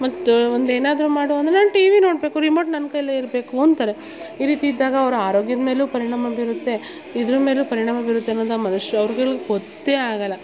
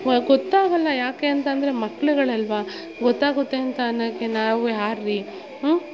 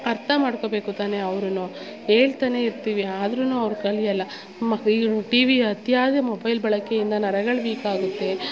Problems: background sounds at intervals, background conversations at intervals